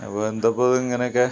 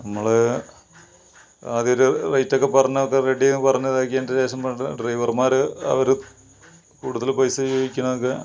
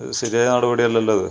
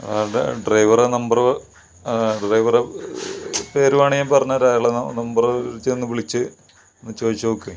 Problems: background sounds at intervals